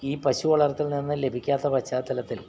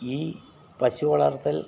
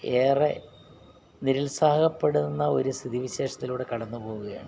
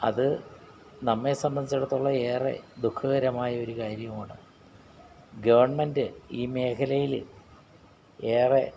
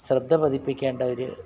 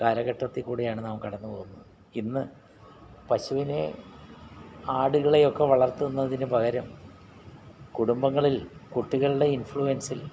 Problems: background sounds at intervals